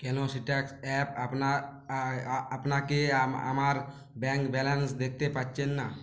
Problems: none marked